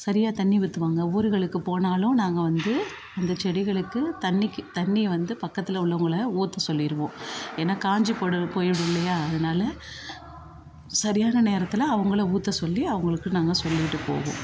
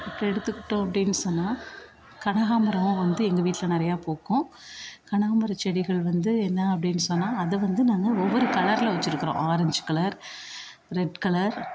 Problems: continuous background conversations